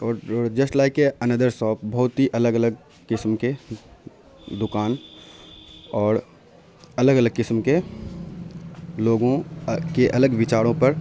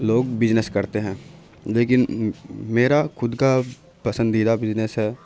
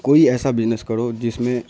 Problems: constant background noise